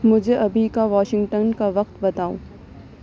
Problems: none marked